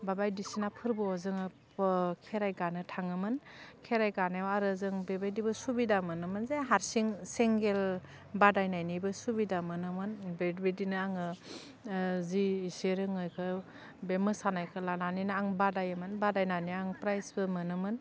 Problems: constant background noise